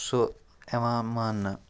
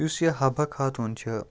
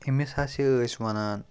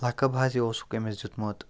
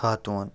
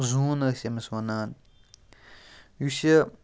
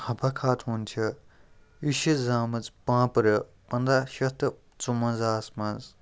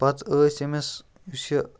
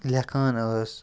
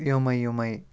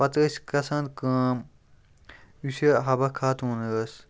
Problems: background sounds at intervals